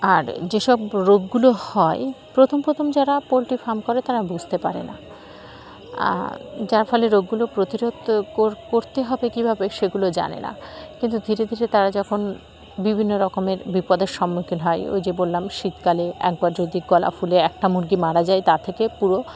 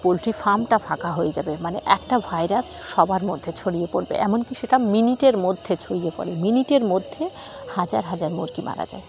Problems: constant background noise, continuous background conversations